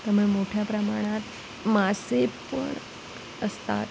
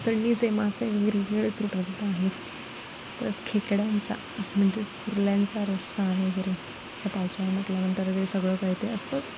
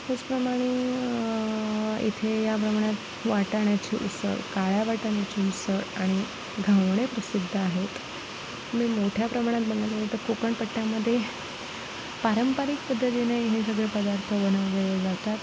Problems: constant background noise